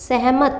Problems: none marked